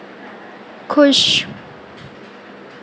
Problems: none marked